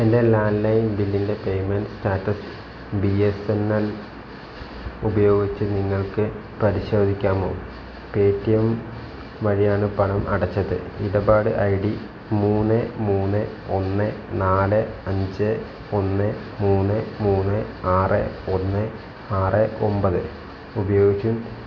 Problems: low volume